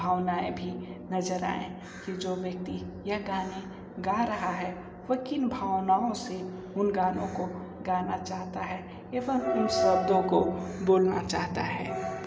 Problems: none marked